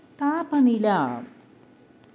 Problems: none marked